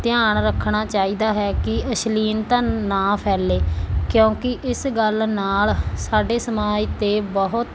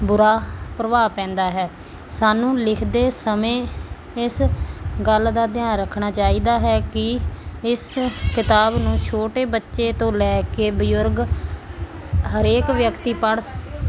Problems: constant background noise